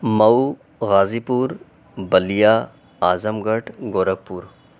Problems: none marked